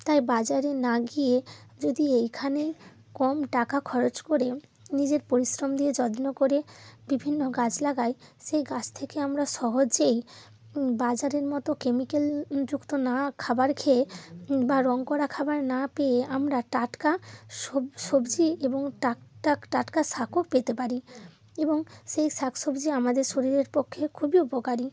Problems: none marked